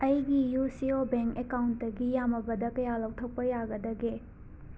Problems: constant background noise